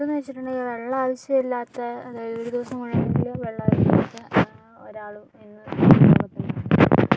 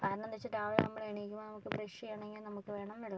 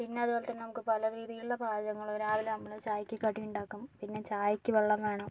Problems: none marked